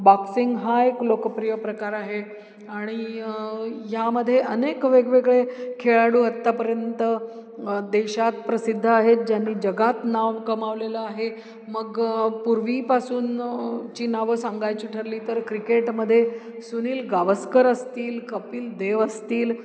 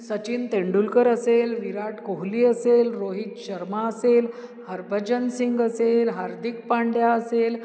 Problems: background sounds at intervals